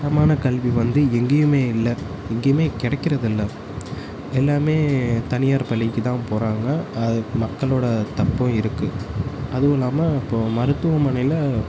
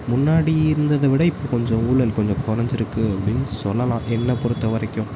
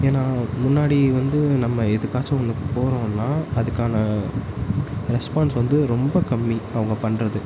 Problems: constant background noise